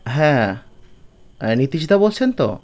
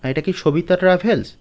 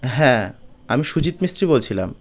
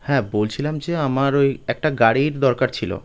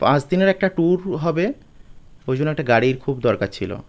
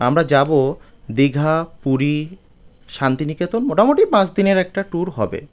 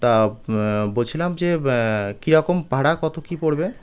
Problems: background sounds at intervals